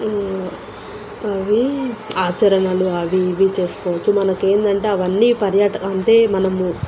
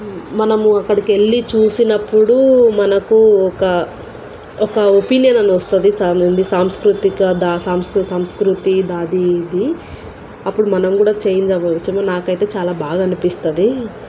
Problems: constant background noise